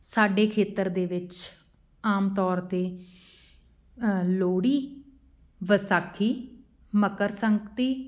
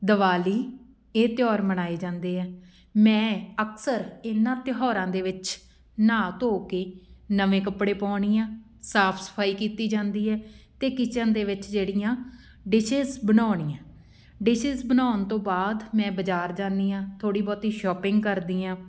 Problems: background sounds at intervals